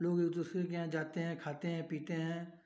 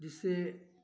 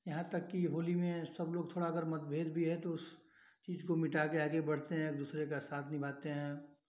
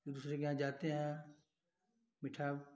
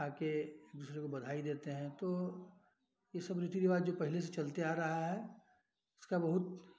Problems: background sounds at intervals